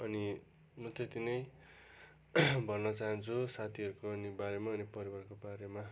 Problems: constant background noise